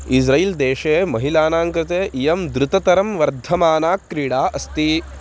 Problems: constant background noise